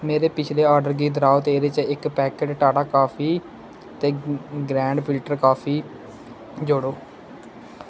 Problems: constant background noise